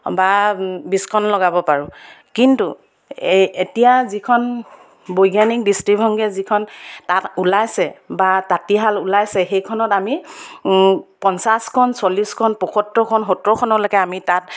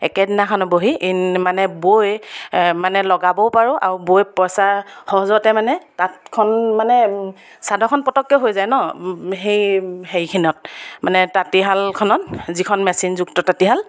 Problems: none marked